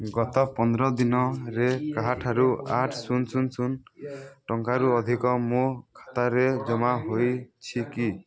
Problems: constant background noise, continuous background conversations